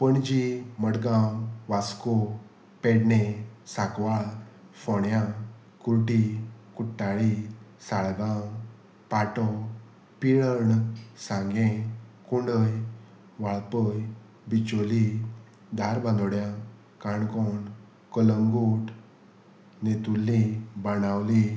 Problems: none marked